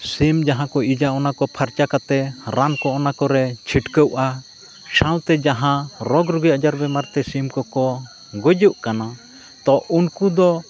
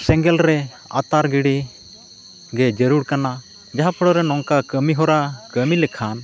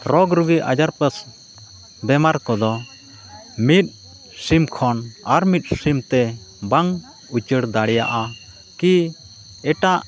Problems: none marked